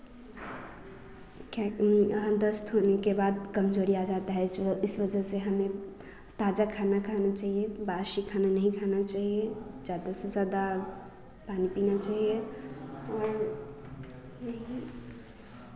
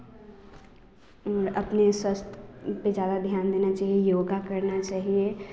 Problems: constant background noise